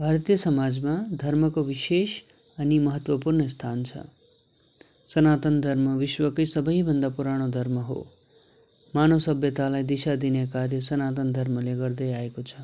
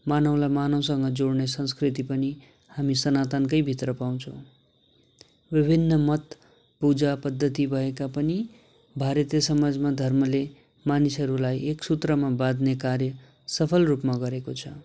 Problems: constant background noise